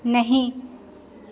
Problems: constant background noise, echo